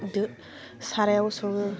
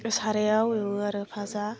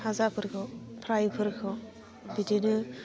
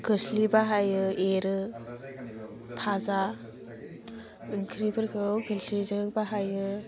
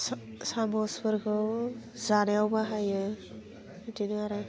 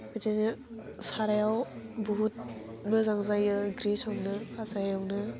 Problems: constant background noise